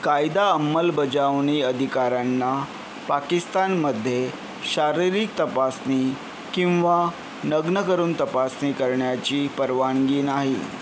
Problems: constant background noise